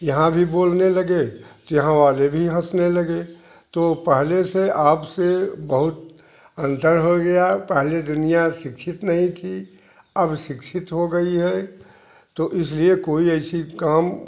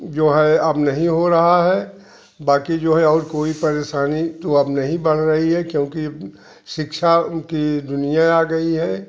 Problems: constant background noise